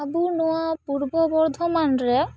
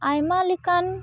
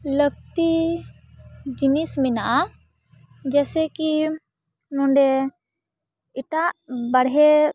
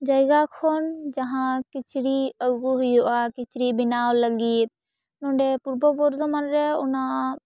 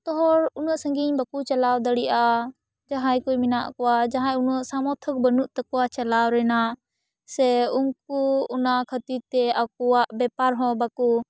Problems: background sounds at intervals